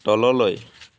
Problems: constant background noise